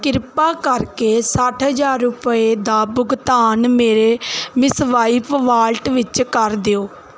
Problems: none marked